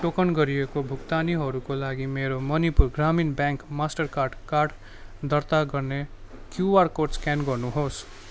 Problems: constant background noise